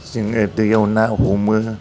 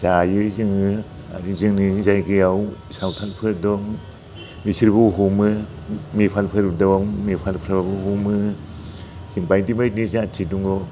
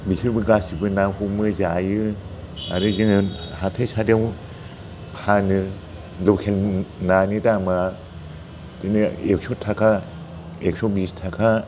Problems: constant background noise